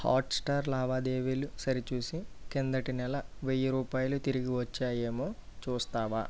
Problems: low volume